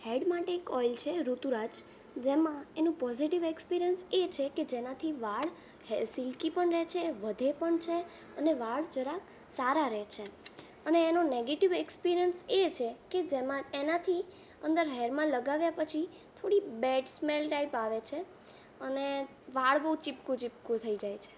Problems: background sounds at intervals